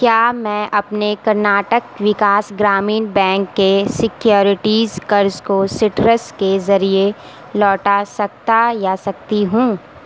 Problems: constant background noise